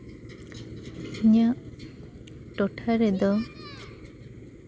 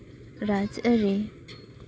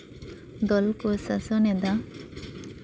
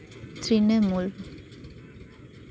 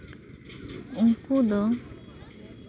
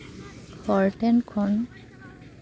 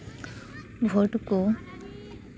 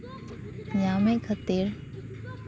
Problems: constant background noise, continuous background conversations